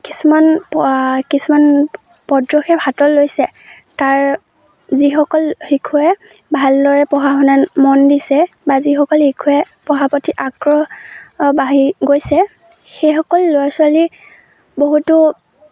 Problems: none marked